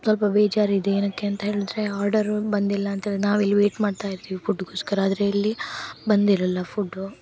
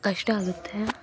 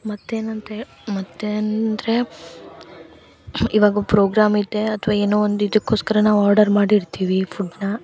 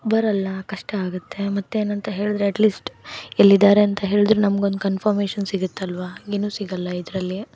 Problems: background sounds at intervals